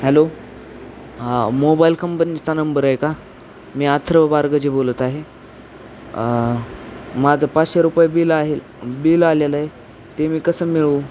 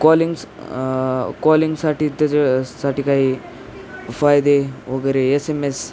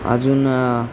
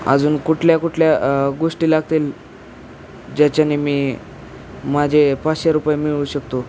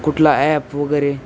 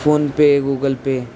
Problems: none marked